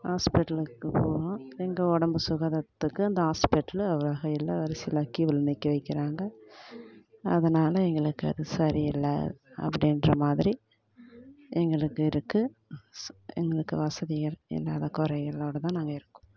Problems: none marked